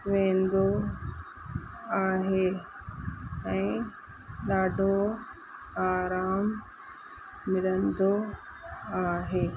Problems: constant background noise